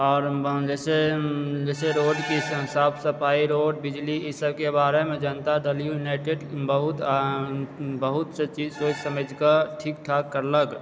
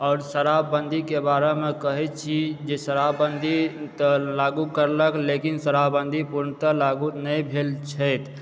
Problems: background sounds at intervals